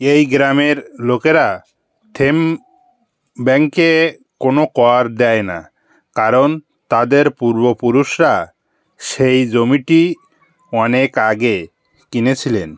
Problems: none marked